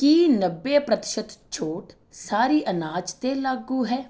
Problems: background conversations at intervals